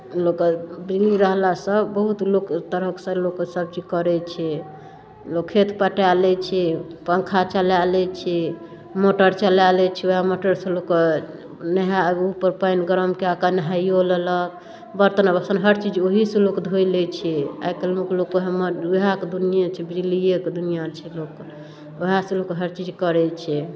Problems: none marked